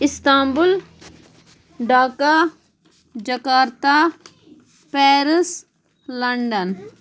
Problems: background sounds at intervals